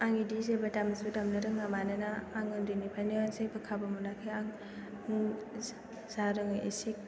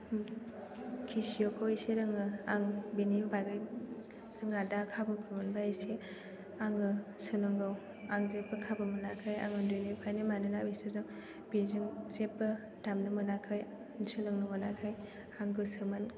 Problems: background sounds at intervals